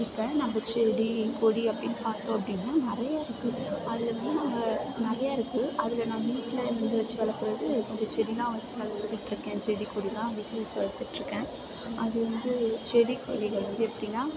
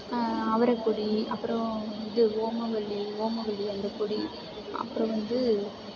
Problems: background sounds at intervals